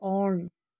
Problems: none marked